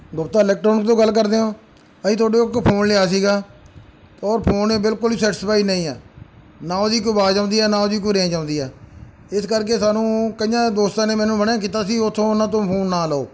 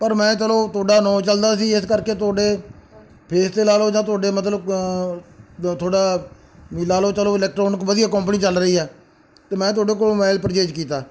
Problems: background sounds at intervals